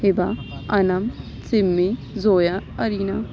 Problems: none marked